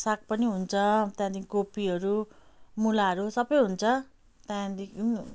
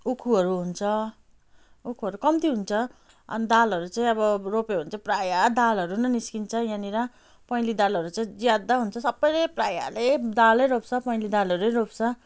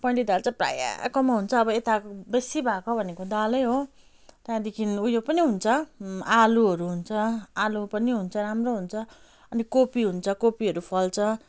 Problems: none marked